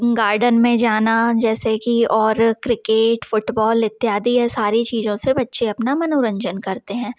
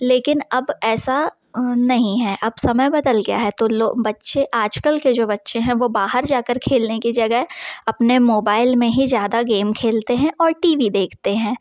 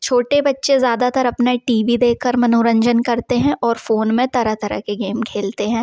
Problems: background sounds at intervals